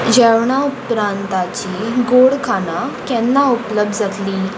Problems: constant background noise